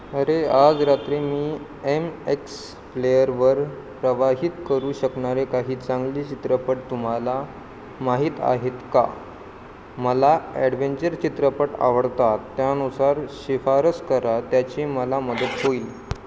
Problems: constant background noise